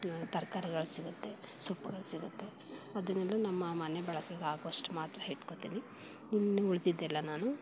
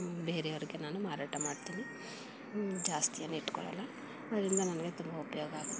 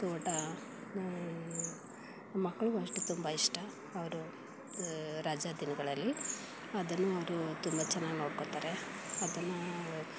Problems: background sounds at intervals